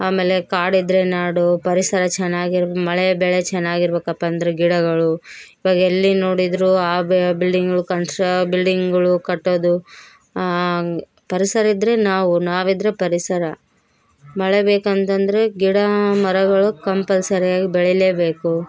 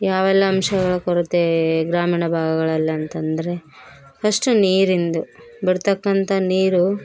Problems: background sounds at intervals